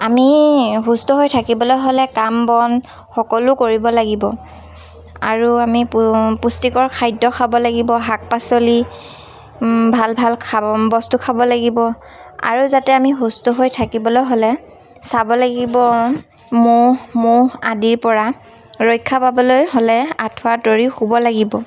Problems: constant background noise, background conversations at intervals